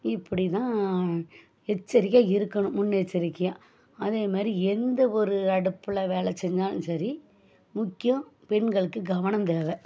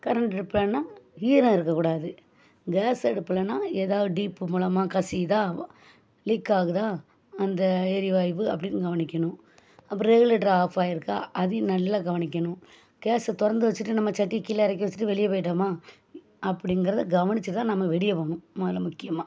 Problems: none marked